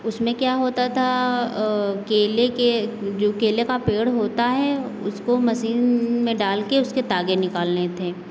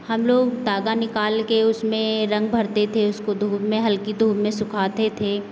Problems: constant background noise